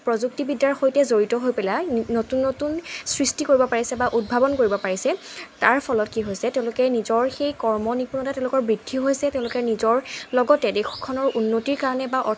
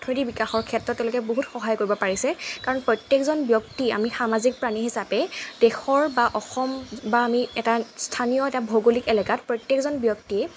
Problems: constant background noise